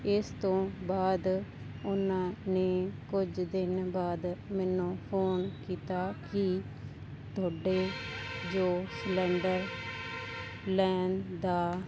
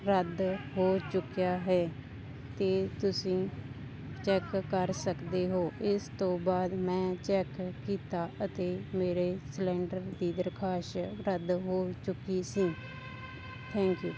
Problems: none marked